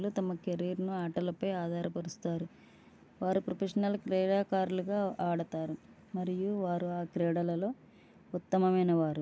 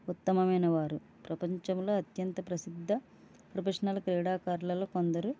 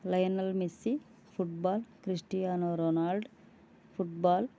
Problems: low volume